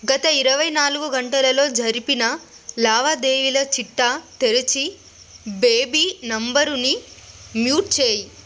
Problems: constant background noise